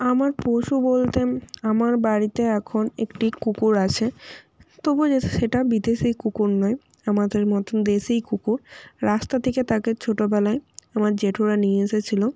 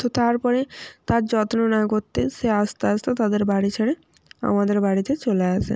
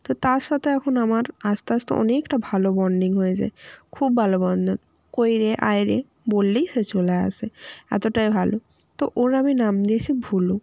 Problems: constant background noise